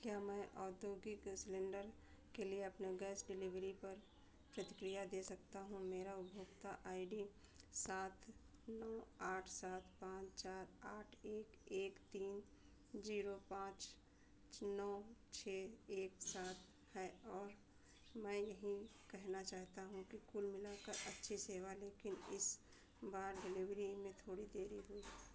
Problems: constant background noise, low volume